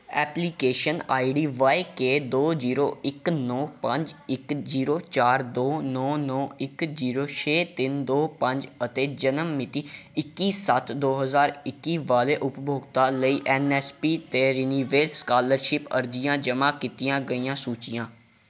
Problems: background sounds at intervals